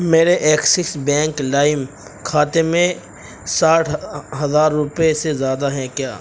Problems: constant background noise